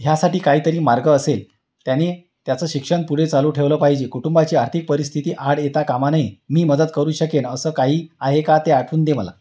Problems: none marked